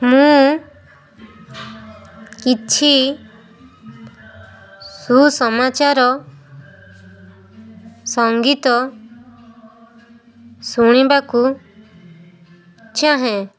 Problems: constant background noise